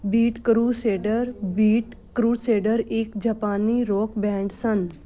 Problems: constant background noise